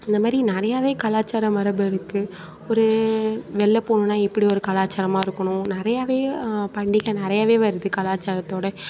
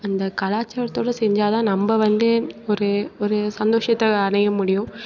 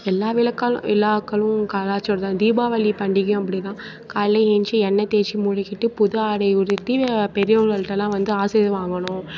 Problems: continuous background conversations